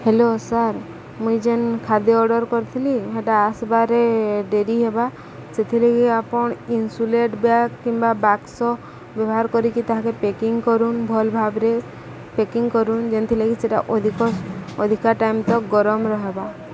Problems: constant background noise, background conversations at intervals